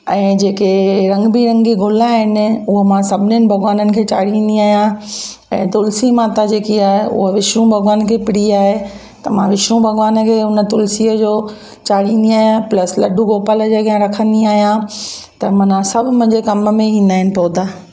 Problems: constant background noise, echo